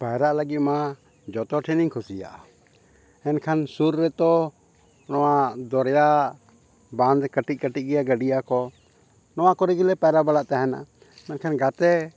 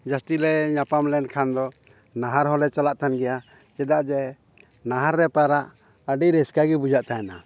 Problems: none marked